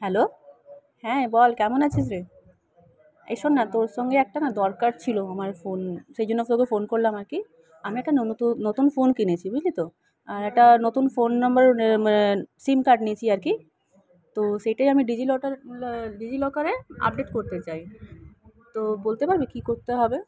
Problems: none marked